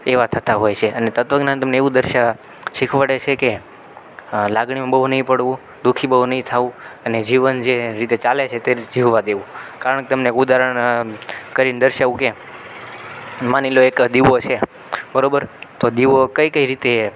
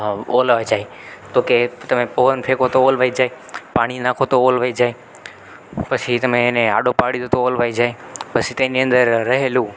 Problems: constant background noise